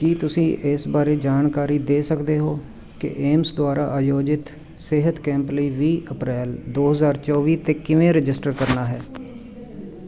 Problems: continuous background conversations